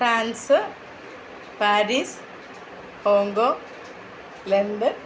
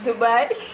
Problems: low volume